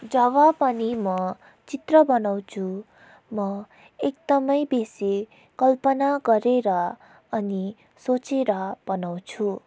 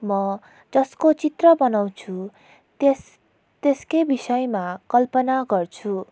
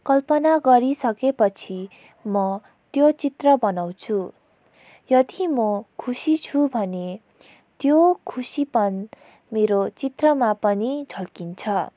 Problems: background sounds at intervals